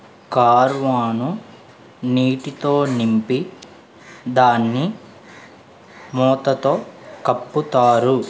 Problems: none marked